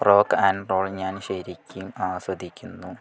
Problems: background conversations at intervals